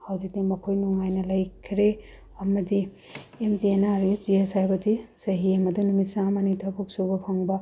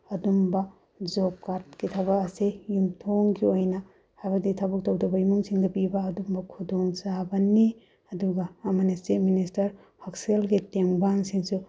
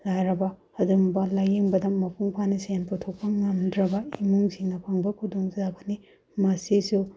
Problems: none marked